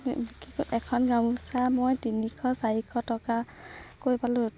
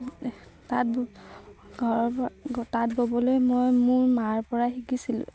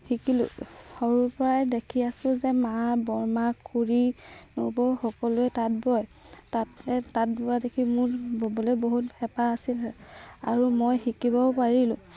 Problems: constant background noise, background conversations at intervals